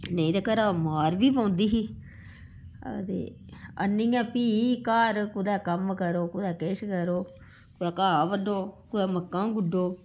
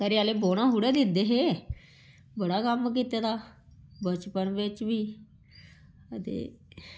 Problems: background sounds at intervals